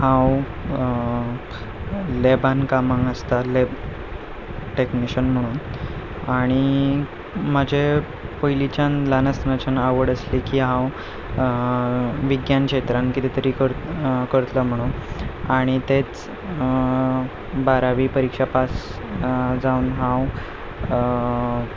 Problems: constant background noise